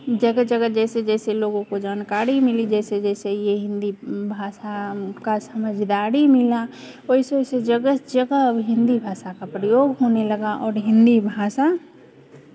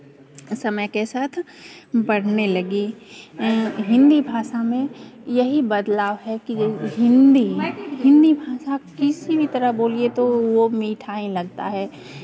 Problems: continuous background conversations